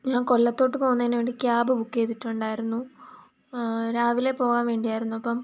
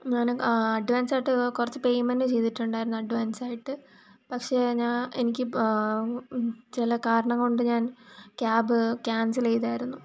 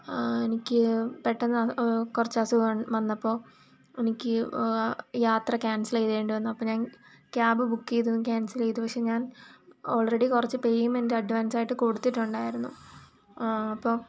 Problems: background sounds at intervals